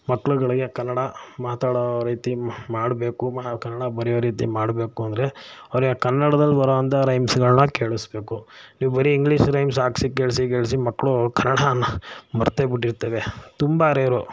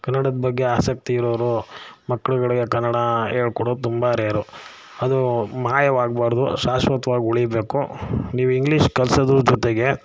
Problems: none marked